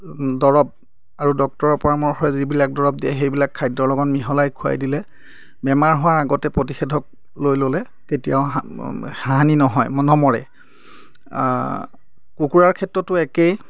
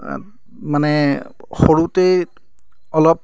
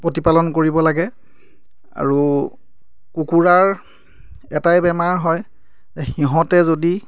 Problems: none marked